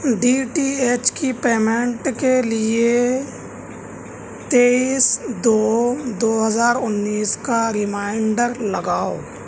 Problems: none marked